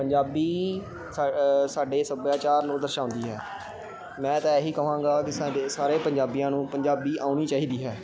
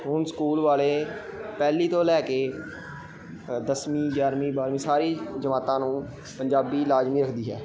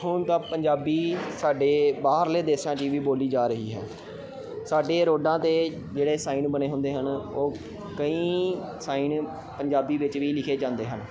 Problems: constant background noise